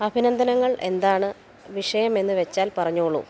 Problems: background sounds at intervals